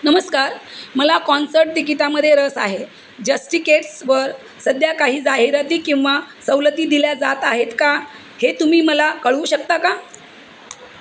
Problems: constant background noise